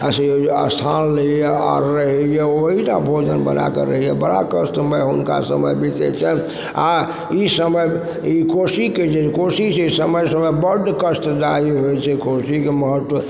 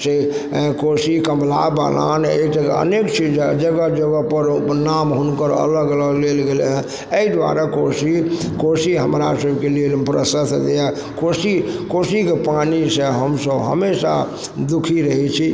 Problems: background sounds at intervals, background conversations at intervals